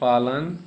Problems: none marked